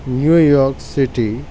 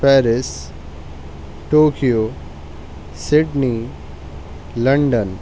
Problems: constant background noise